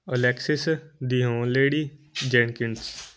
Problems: constant background noise